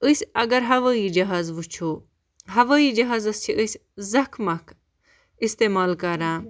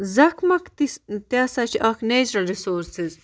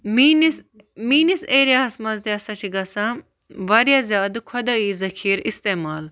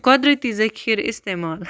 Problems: none marked